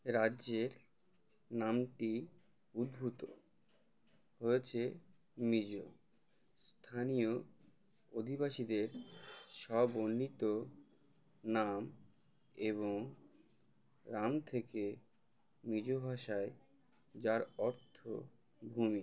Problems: none marked